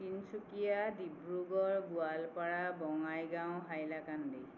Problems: constant background noise